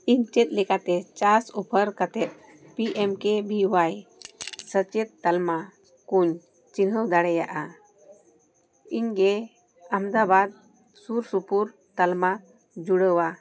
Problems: none marked